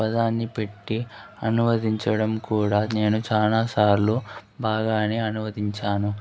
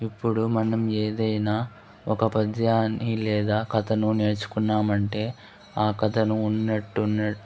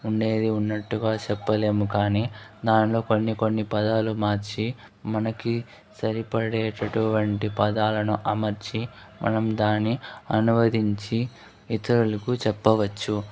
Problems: none marked